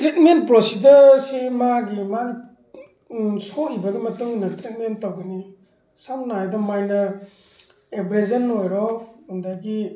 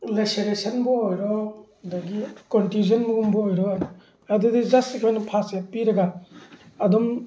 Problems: none marked